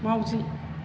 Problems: none marked